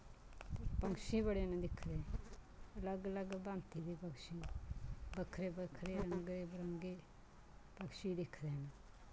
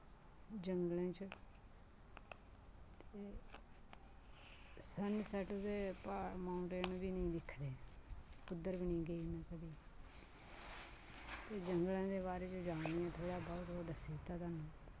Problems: constant background noise